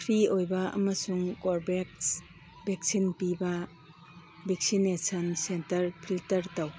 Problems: background sounds at intervals